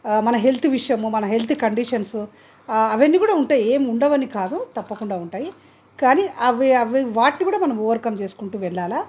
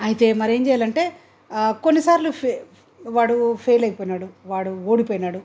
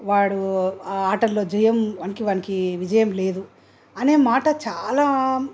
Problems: none marked